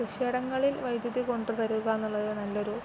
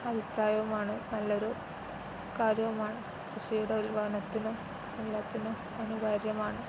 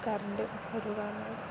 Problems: constant background noise